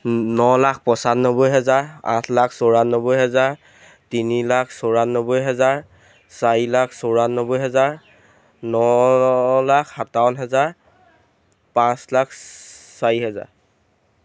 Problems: background sounds at intervals